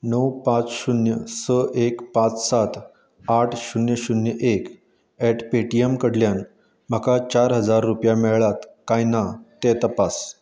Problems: none marked